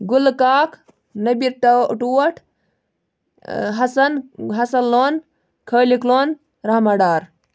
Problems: background sounds at intervals